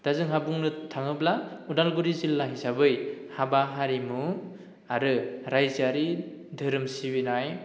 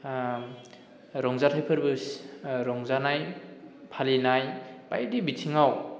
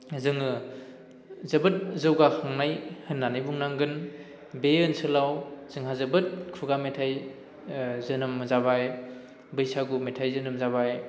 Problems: none marked